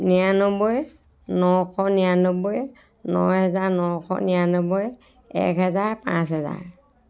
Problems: background conversations at intervals